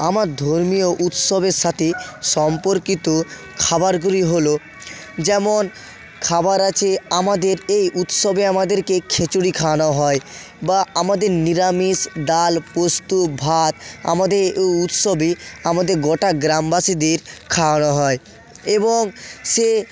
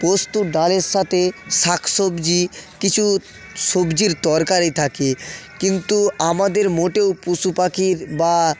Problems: constant background noise